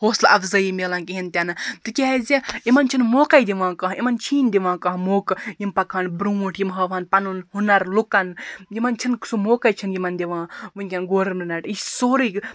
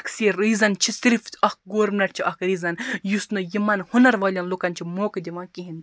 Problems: background sounds at intervals